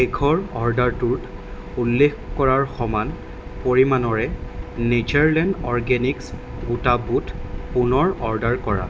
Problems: constant background noise